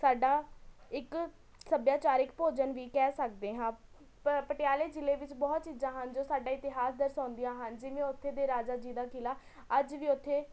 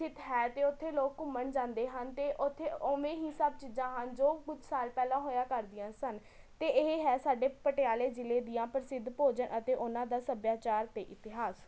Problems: none marked